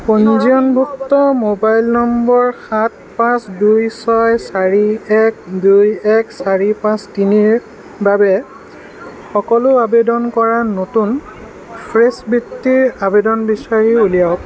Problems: constant background noise